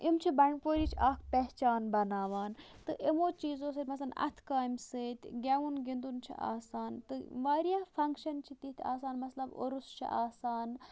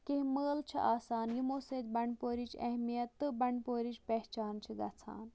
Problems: background sounds at intervals, low volume